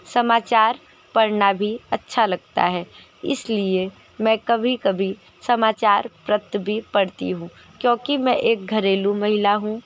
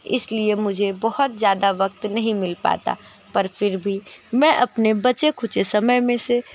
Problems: background sounds at intervals